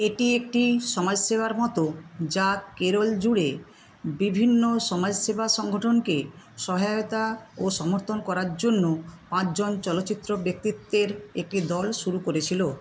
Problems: constant background noise